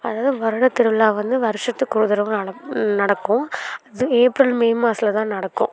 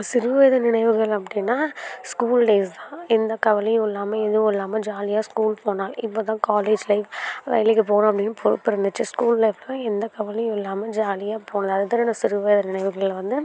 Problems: background sounds at intervals, background conversations at intervals